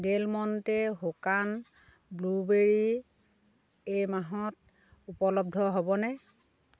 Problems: none marked